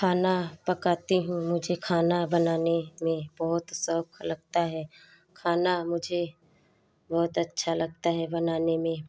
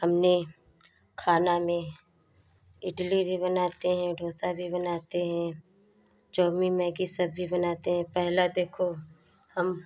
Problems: background sounds at intervals